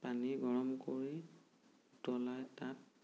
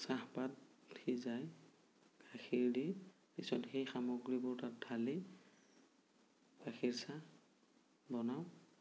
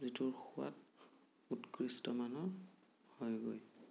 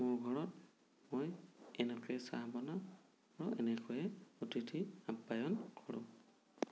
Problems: low volume